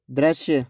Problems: none marked